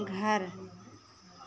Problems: low volume